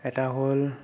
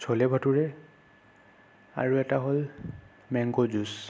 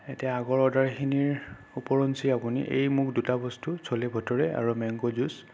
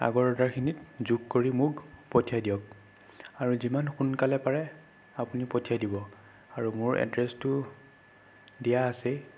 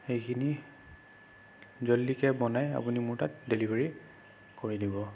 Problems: none marked